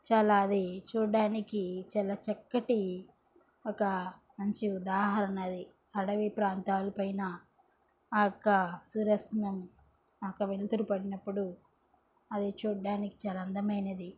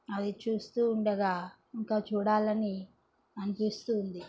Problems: background sounds at intervals, background conversations at intervals